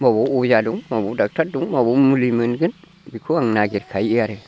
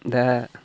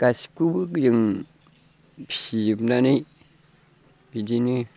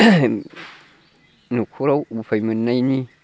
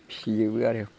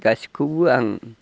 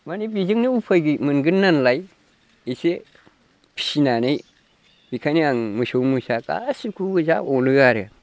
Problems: constant background noise